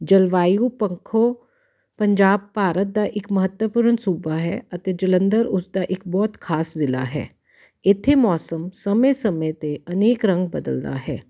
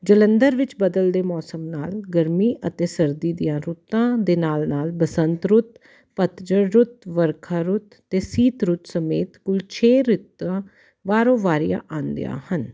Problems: none marked